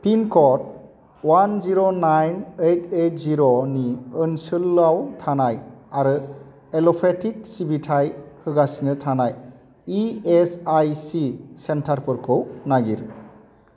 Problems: constant background noise